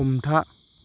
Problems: constant background noise